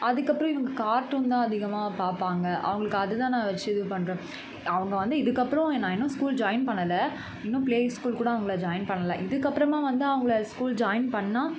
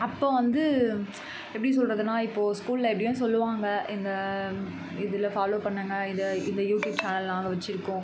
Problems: constant background noise